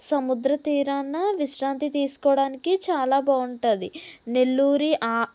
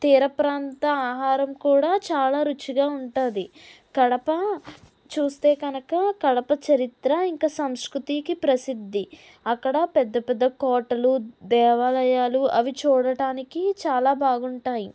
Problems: none marked